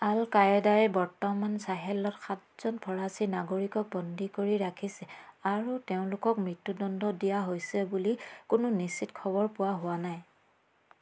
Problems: none marked